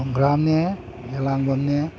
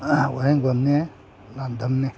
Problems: none marked